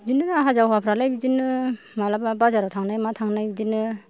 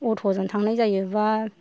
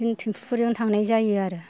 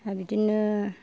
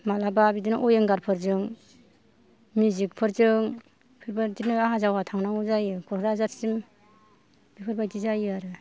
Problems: low volume